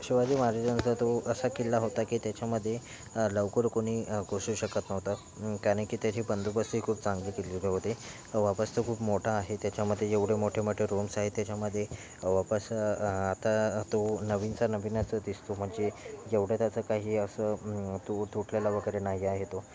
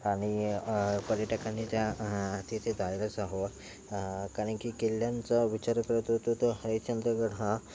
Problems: none marked